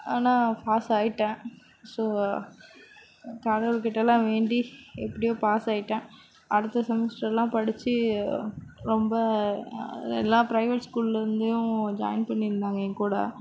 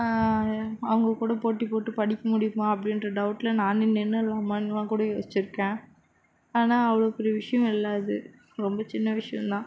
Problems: background sounds at intervals